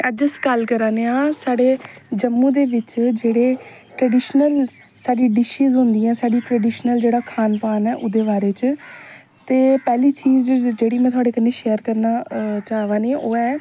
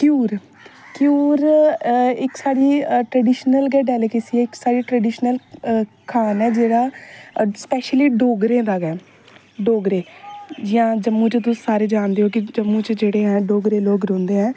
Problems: background sounds at intervals